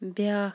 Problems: none marked